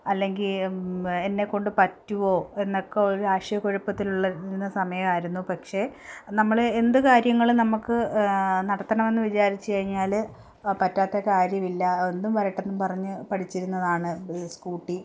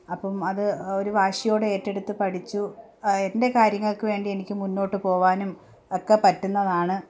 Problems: none marked